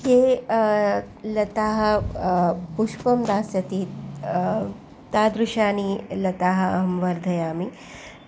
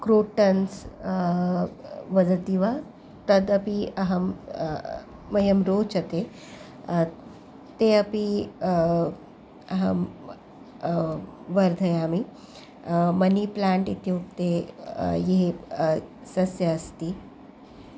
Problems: background sounds at intervals